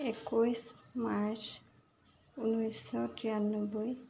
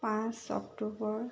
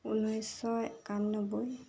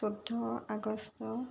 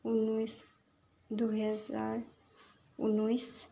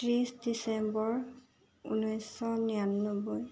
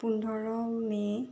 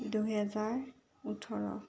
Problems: none marked